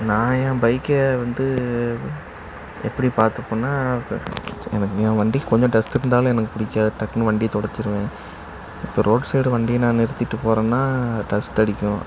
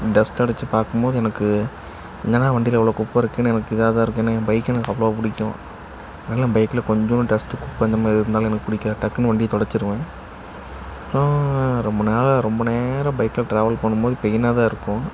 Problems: constant background noise